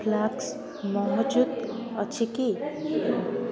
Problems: constant background noise, continuous background conversations